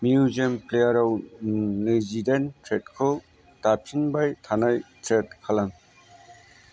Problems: constant background noise